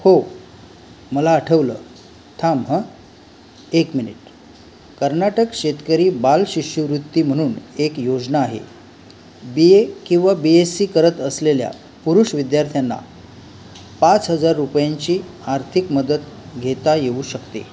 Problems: constant background noise